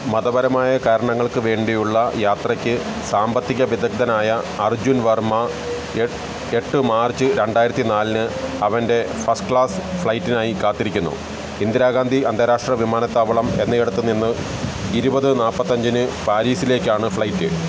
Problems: constant background noise